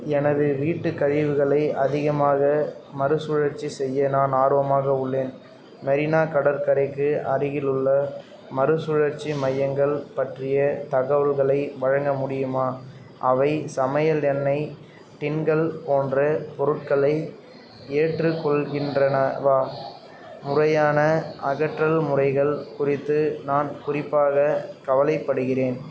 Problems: background conversations at intervals